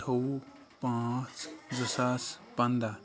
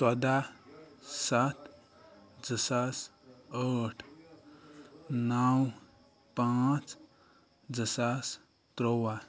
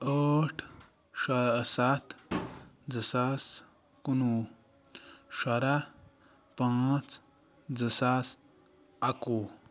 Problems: none marked